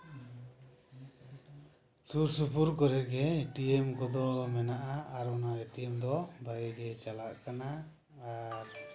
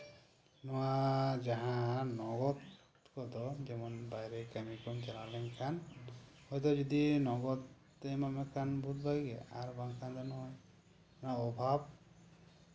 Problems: low volume